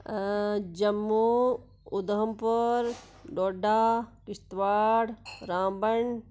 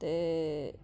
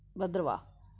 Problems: constant background noise